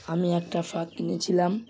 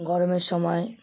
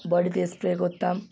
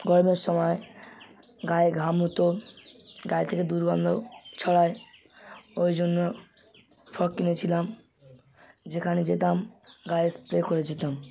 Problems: constant background noise